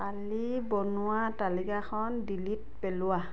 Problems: background conversations at intervals